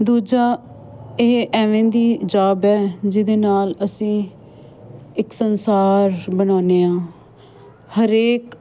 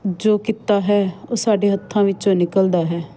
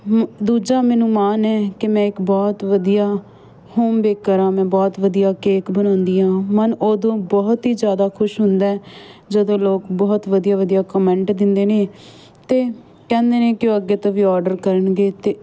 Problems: constant background noise